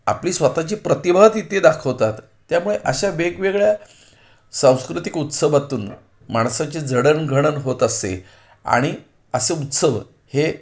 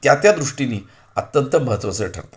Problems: none marked